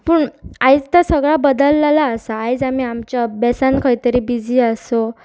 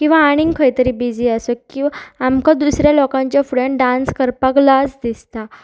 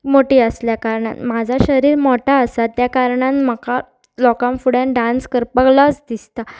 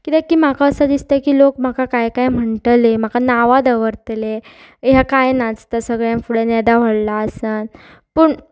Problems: constant background noise